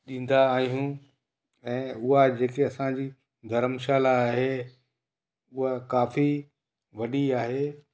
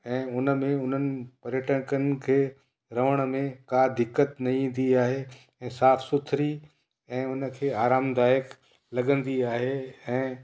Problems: echo